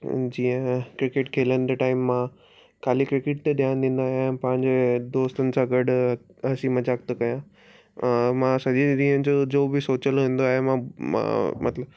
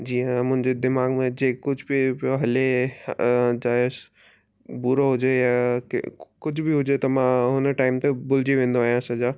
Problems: none marked